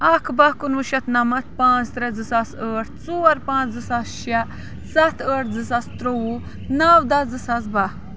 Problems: background sounds at intervals